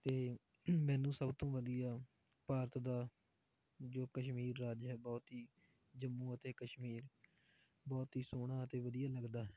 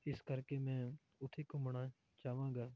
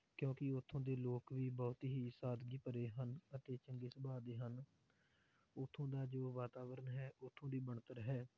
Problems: low volume